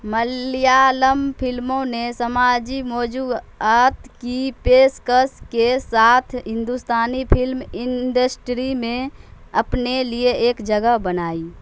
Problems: constant background noise